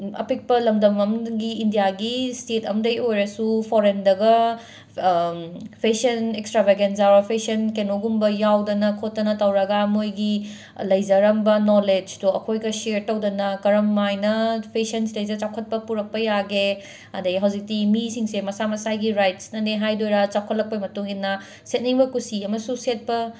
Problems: background sounds at intervals